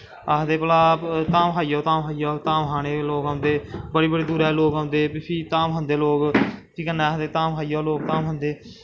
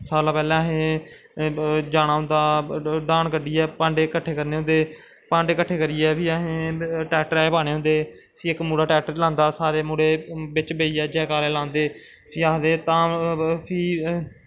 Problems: constant background noise